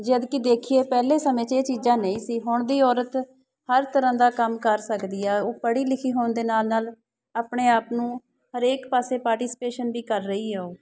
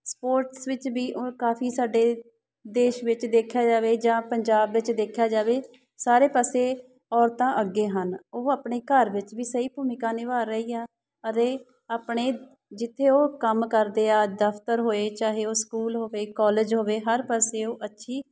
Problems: background sounds at intervals